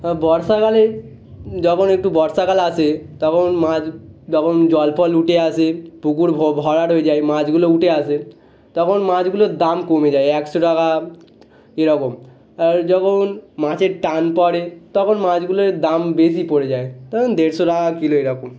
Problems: background sounds at intervals